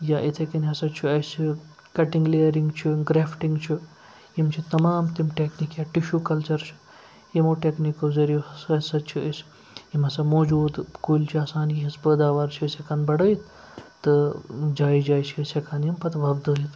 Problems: constant background noise